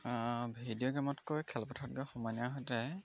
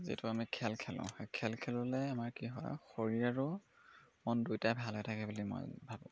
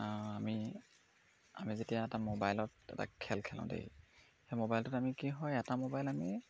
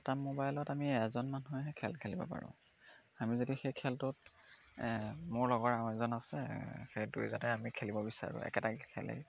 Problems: constant background noise